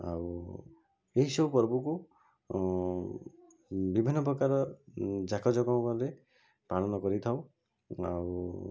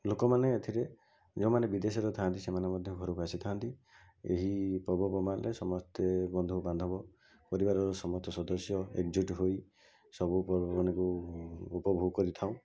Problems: constant background noise